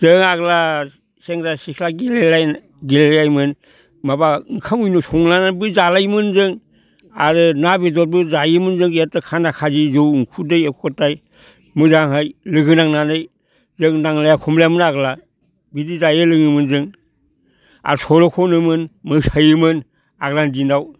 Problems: none marked